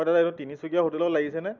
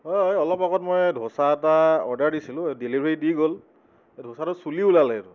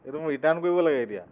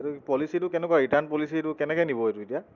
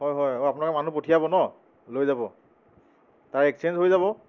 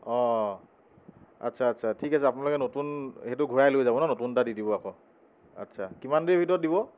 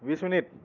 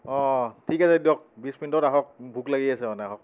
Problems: background sounds at intervals